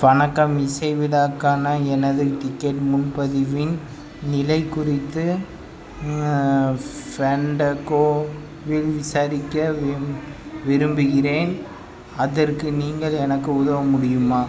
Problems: constant background noise